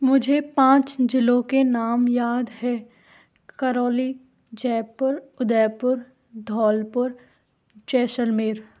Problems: none marked